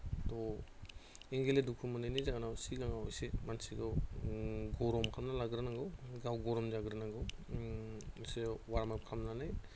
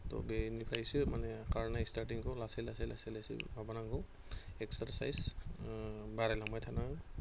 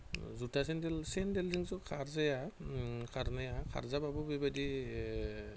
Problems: constant background noise